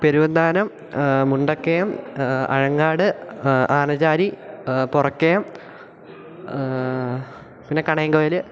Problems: continuous background conversations